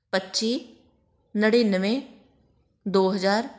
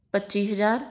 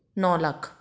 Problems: constant background noise